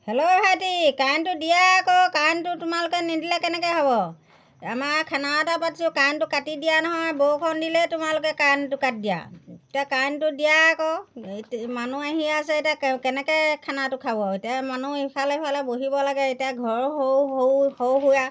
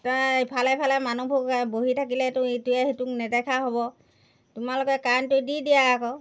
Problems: background sounds at intervals